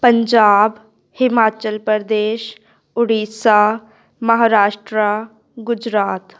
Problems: none marked